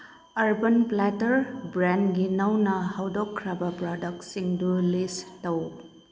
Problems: background sounds at intervals